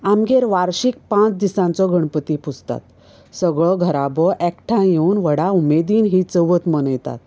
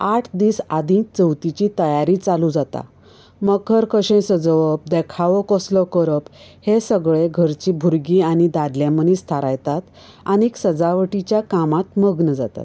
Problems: none marked